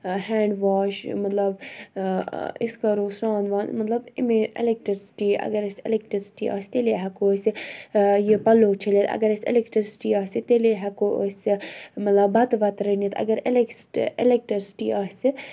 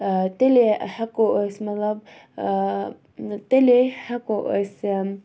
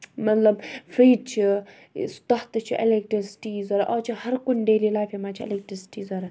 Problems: background sounds at intervals